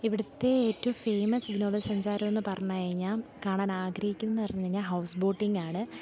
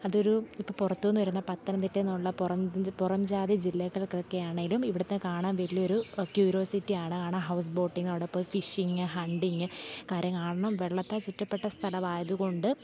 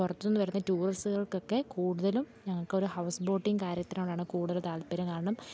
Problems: low volume